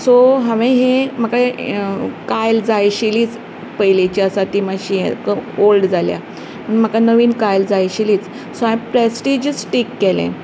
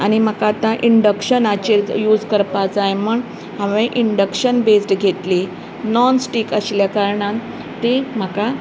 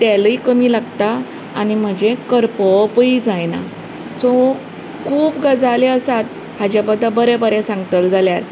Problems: none marked